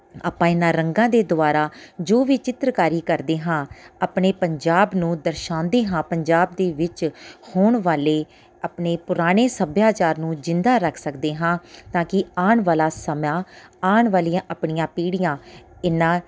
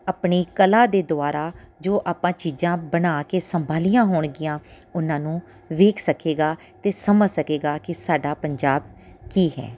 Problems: background sounds at intervals